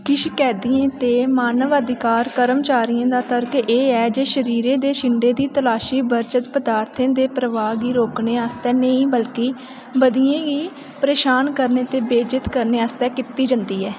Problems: constant background noise, echo